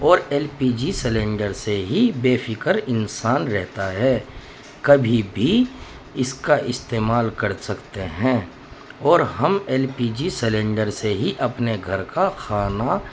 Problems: constant background noise